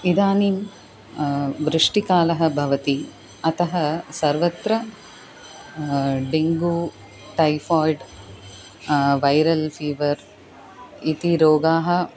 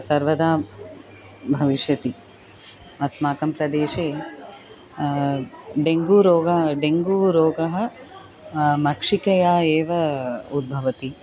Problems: constant background noise